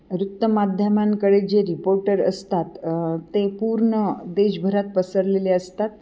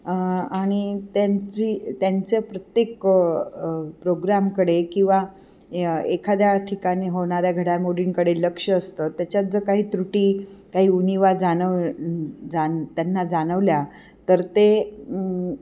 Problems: none marked